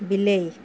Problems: constant background noise